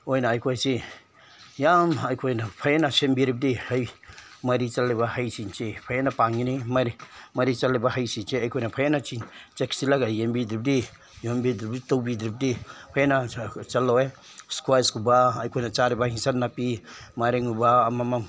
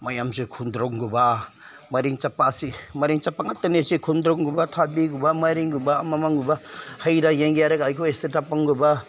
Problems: none marked